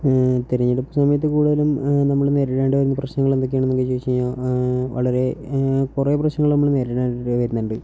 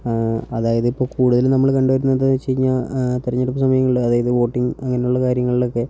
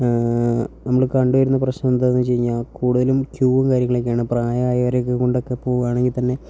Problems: low volume